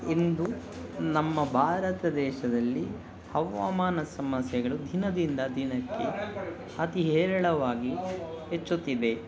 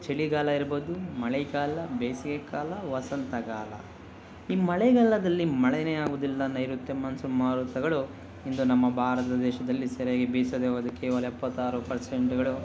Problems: background sounds at intervals